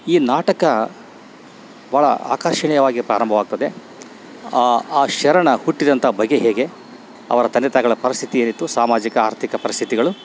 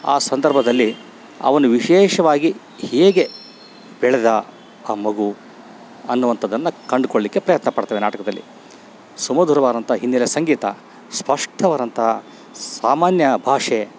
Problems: none marked